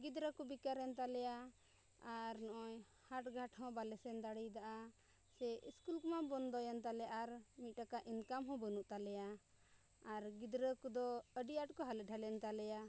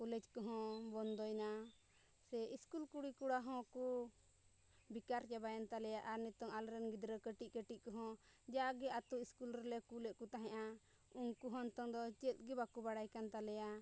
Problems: low volume